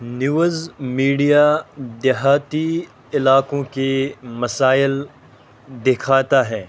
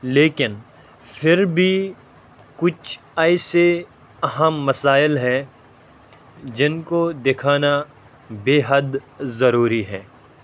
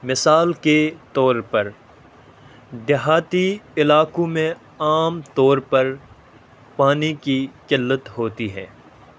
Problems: constant background noise